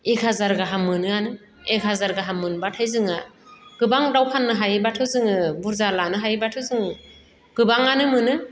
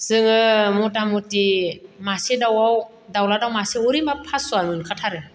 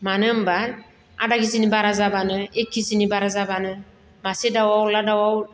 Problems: none marked